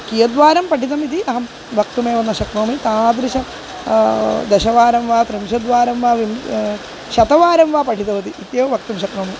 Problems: constant background noise